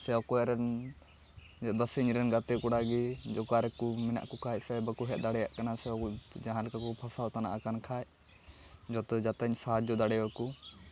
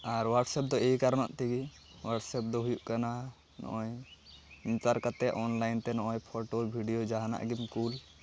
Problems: background sounds at intervals, continuous background conversations